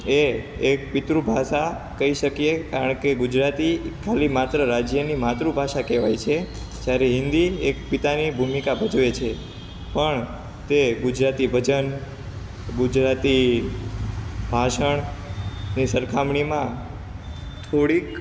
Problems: none marked